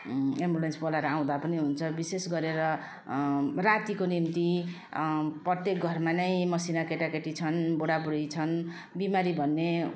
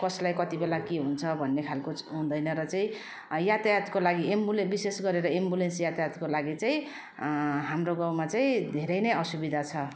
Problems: constant background noise